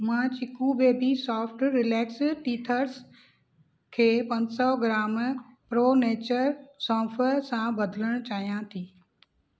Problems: none marked